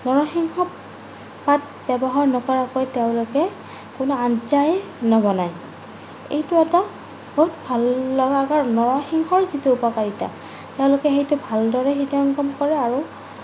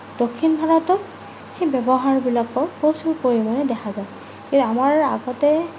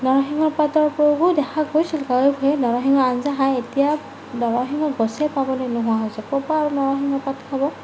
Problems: none marked